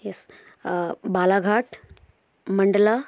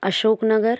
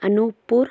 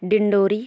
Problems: background sounds at intervals